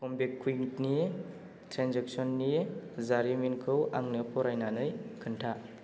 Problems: low volume